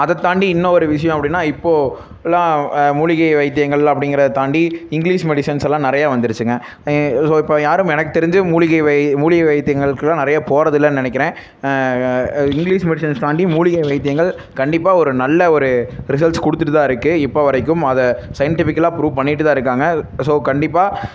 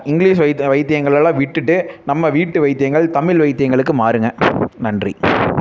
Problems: constant background noise